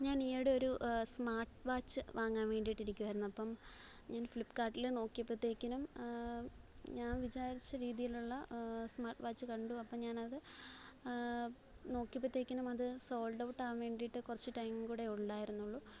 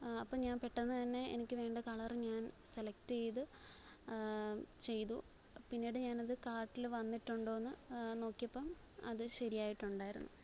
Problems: low volume